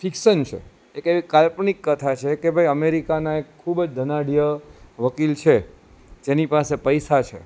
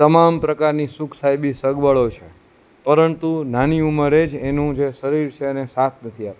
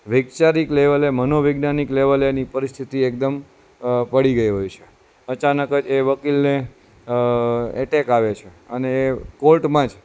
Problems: constant background noise